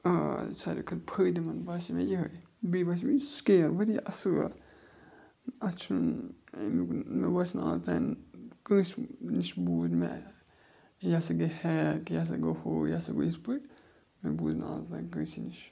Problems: constant background noise